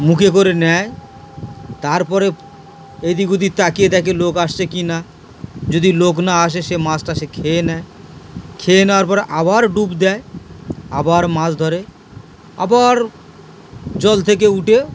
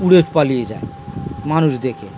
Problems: constant background noise